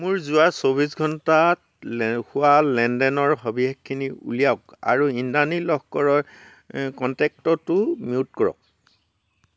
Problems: background sounds at intervals